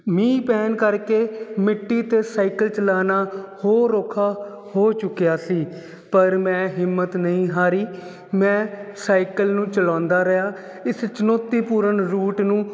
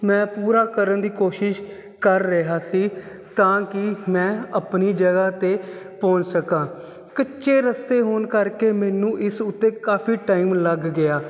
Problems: none marked